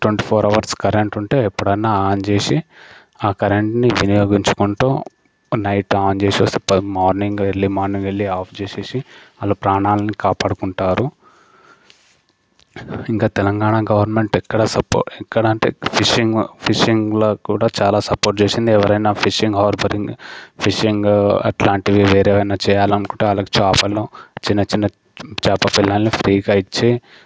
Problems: constant background noise